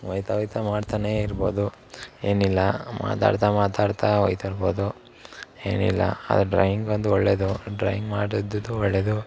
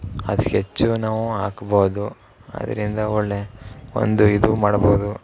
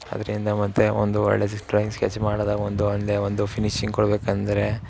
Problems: none marked